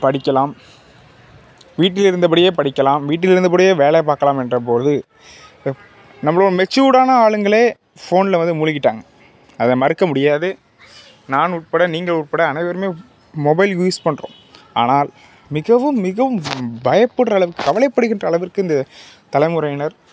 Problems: constant background noise